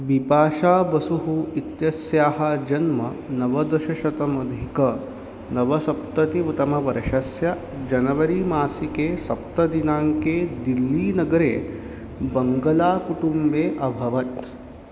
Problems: none marked